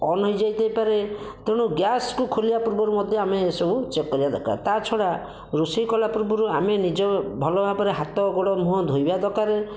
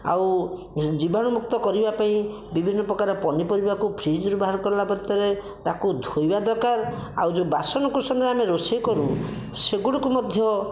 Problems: none marked